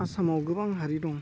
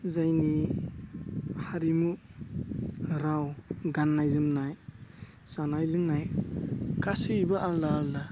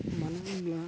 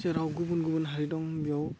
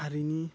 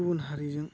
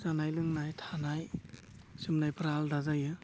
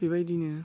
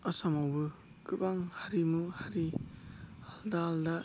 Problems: constant background noise